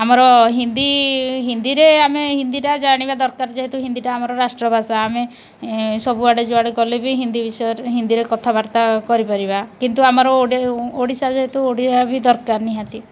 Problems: none marked